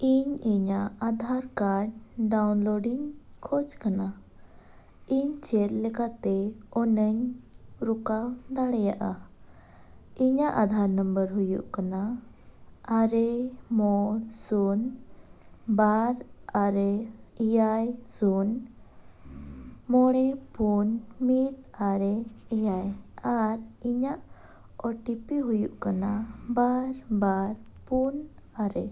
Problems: none marked